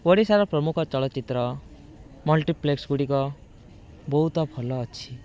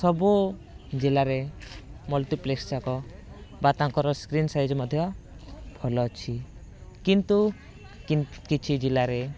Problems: constant background noise